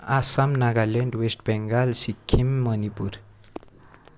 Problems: none marked